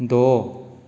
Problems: none marked